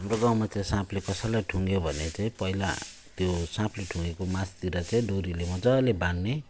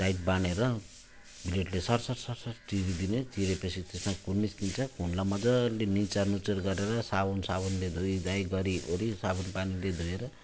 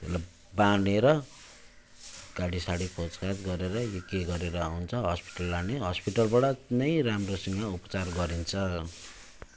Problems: constant background noise